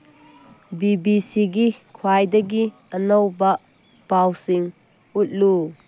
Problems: none marked